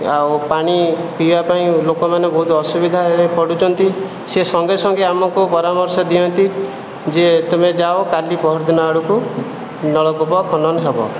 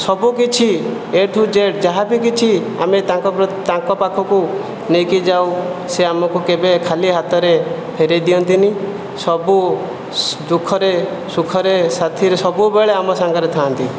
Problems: none marked